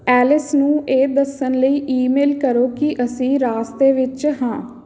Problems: background conversations at intervals